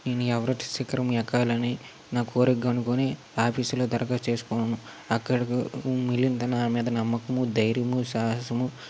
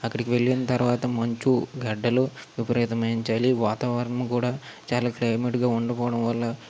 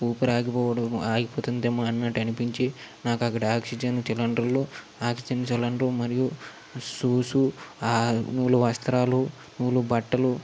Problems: constant background noise